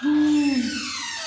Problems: constant background noise